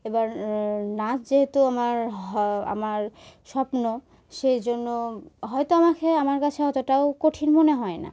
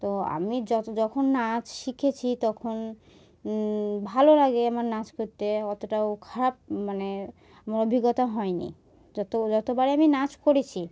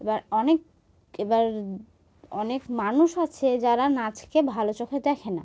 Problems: background sounds at intervals